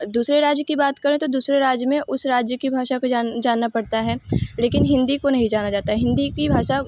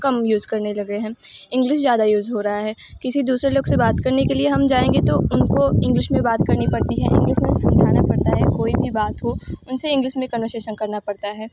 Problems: background sounds at intervals